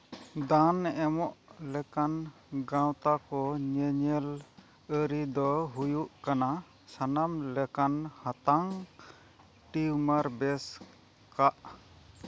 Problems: background sounds at intervals